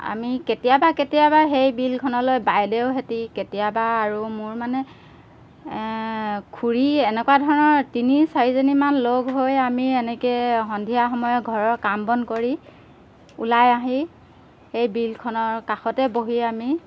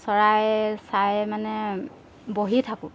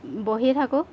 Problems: background sounds at intervals